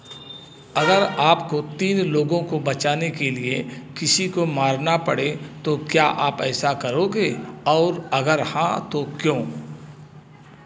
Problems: none marked